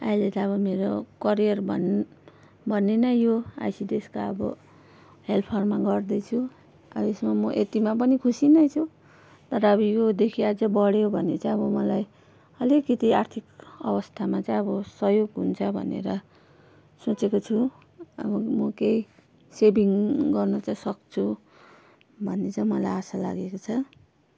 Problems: constant background noise